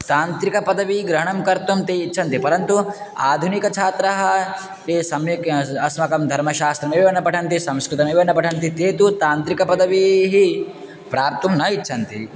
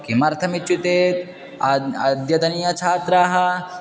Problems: none marked